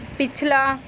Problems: background conversations at intervals